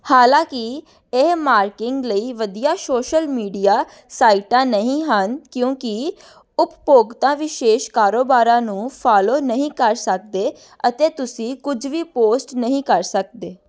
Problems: none marked